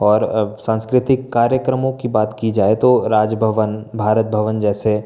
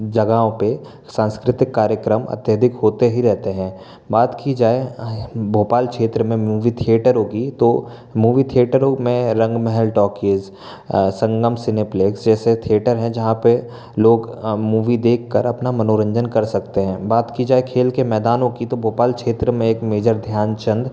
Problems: constant background noise